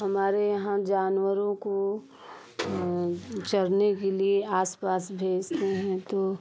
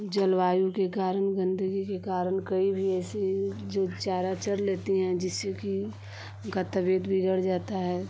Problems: constant background noise